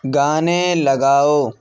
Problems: none marked